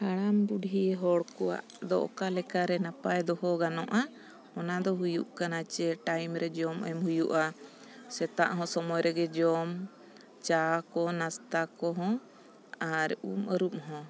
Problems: background sounds at intervals